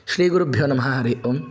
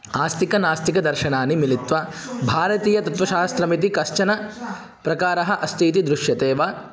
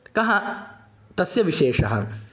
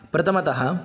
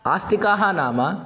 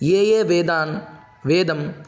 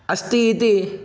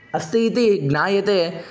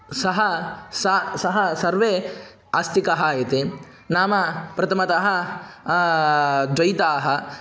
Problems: background conversations at intervals